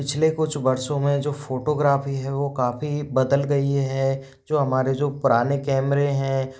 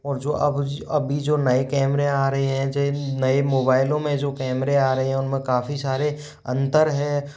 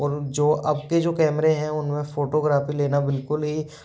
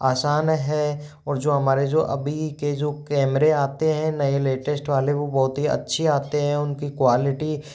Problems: background sounds at intervals